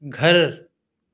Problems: none marked